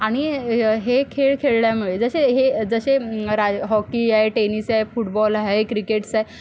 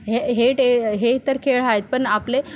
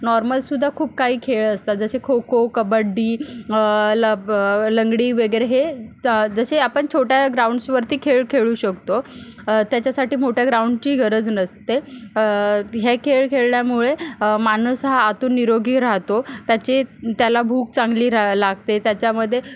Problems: background sounds at intervals